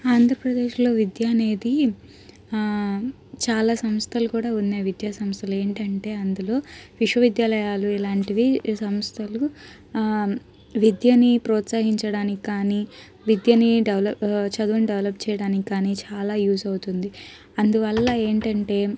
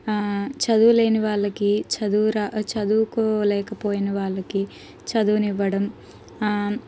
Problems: background sounds at intervals, background conversations at intervals